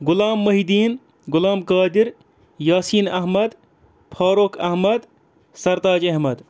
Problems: background sounds at intervals